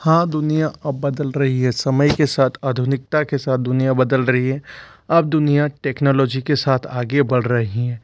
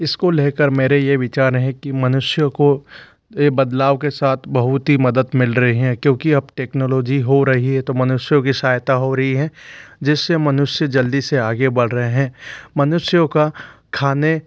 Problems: constant background noise